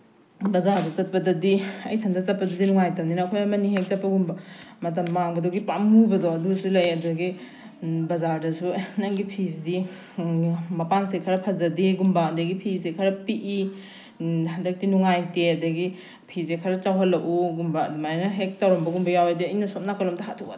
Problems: background sounds at intervals